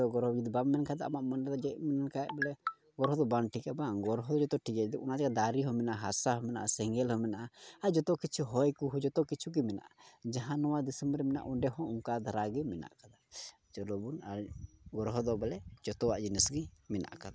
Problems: low volume